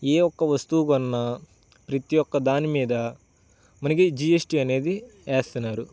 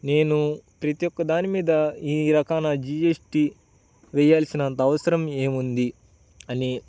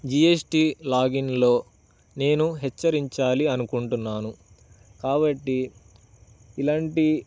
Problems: none marked